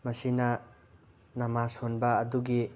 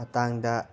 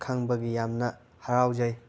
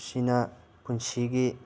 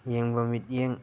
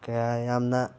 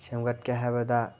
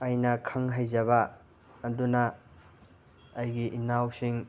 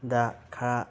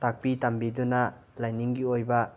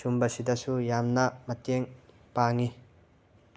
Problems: constant background noise